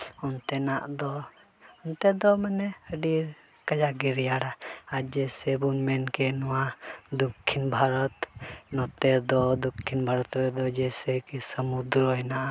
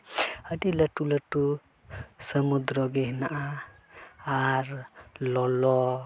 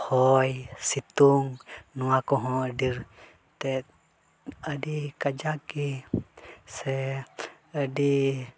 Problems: constant background noise, background conversations at intervals